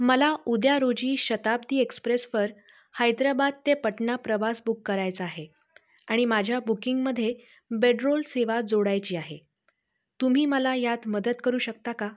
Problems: constant background noise